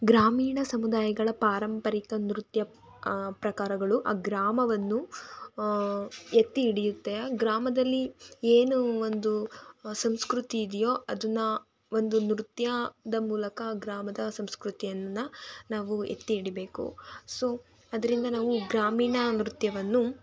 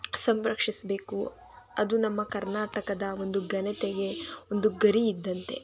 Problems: continuous background conversations